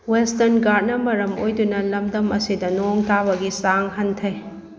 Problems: constant background noise